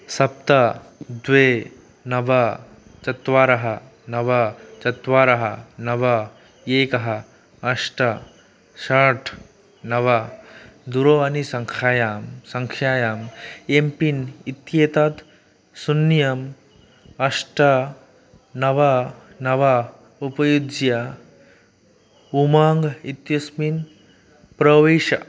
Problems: constant background noise